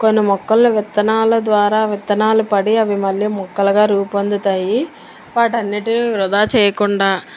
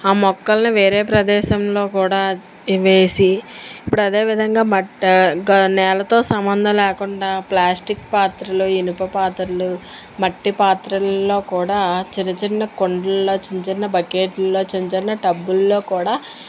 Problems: constant background noise